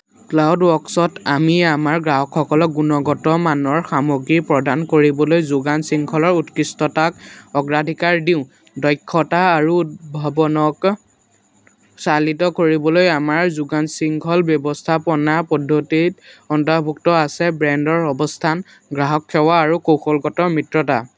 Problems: none marked